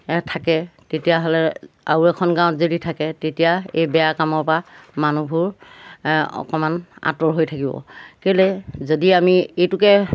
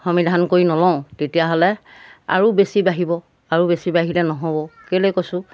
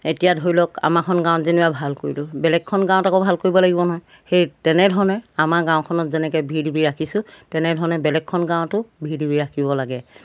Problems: background sounds at intervals